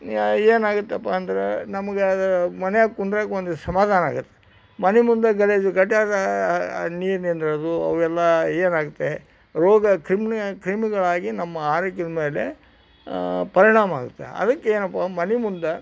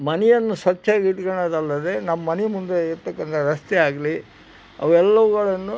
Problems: background sounds at intervals